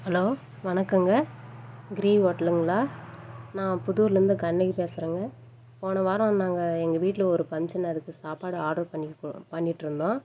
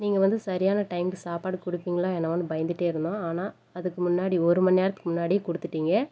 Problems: background conversations at intervals